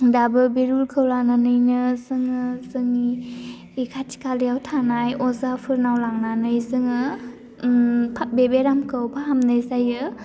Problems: low volume